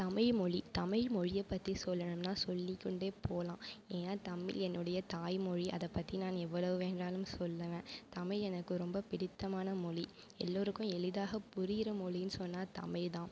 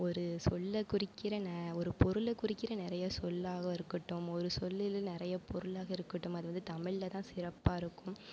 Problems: none marked